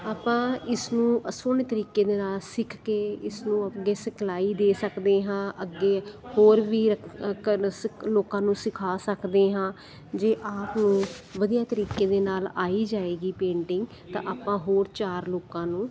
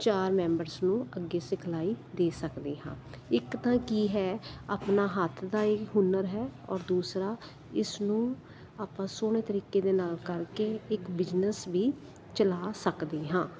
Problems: constant background noise, continuous background conversations